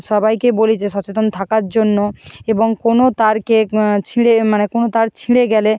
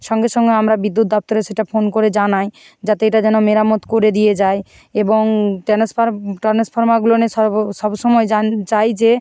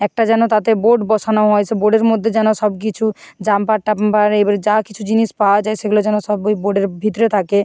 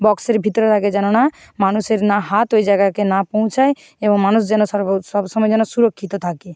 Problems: constant background noise